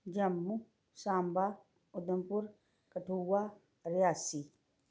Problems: background sounds at intervals